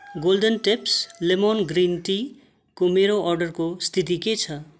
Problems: constant background noise